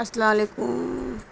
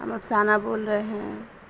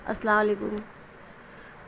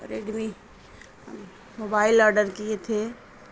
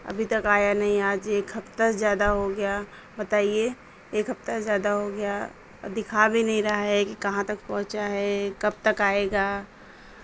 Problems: constant background noise